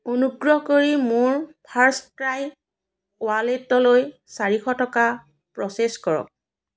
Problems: none marked